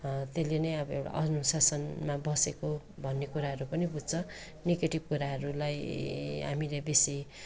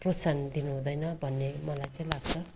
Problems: continuous background conversations